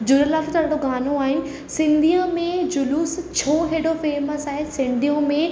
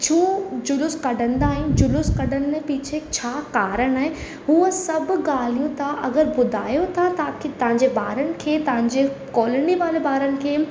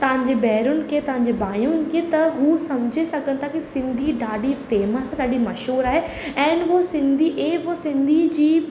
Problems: constant background noise, echo